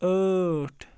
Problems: constant background noise